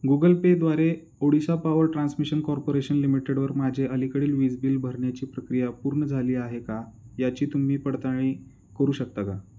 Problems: none marked